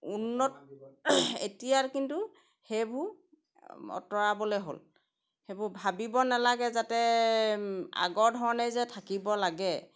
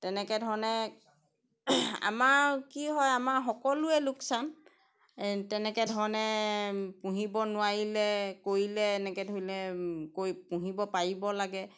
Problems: none marked